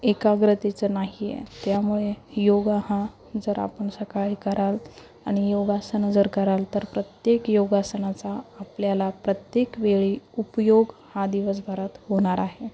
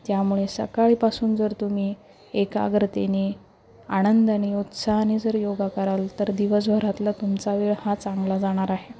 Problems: constant background noise, continuous background conversations, low volume